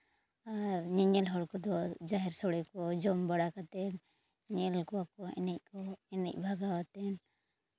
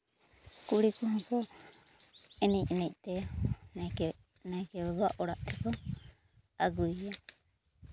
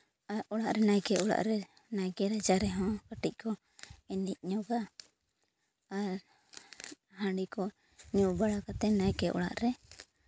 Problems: none marked